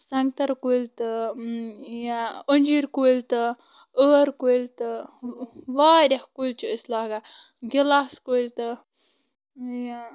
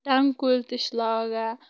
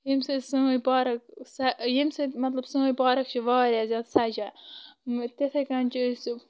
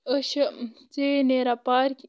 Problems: constant background noise